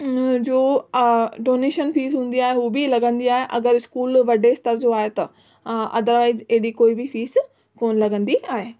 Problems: background sounds at intervals